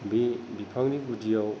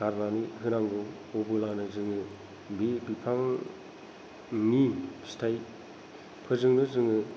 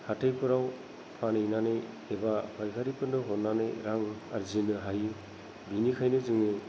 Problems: low volume